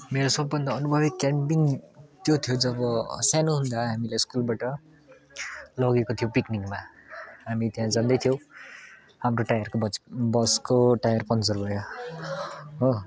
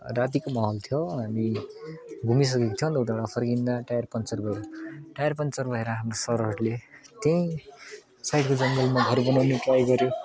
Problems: constant background noise, continuous background conversations